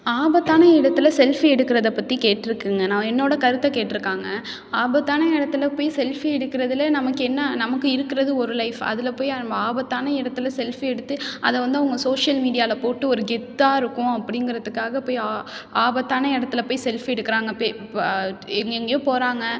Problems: none marked